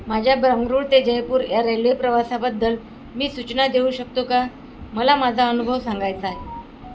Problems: constant background noise